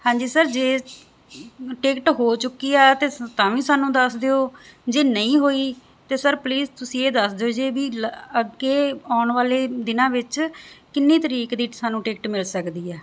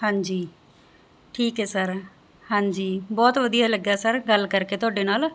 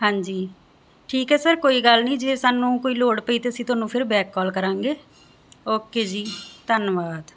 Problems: background sounds at intervals